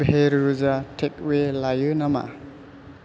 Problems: constant background noise